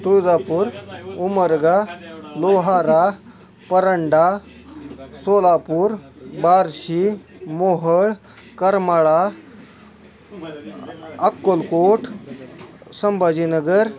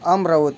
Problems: constant background noise, continuous background conversations